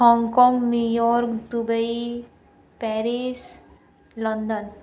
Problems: none marked